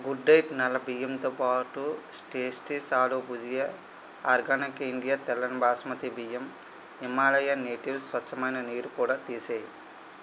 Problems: constant background noise